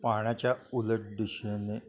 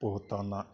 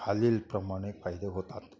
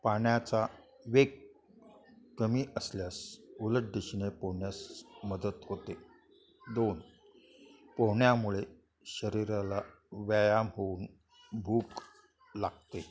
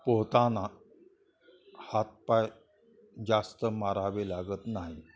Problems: constant background noise, continuous background conversations